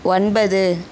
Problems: none marked